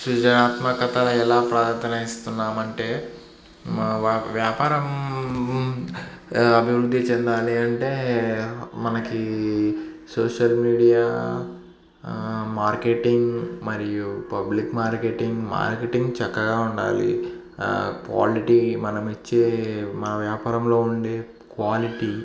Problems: none marked